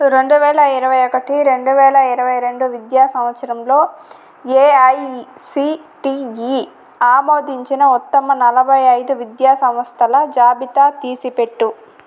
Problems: constant background noise